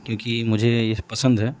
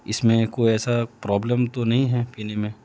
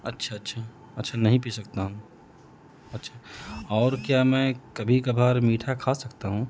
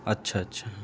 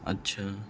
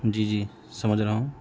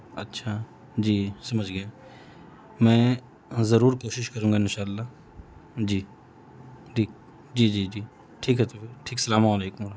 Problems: constant background noise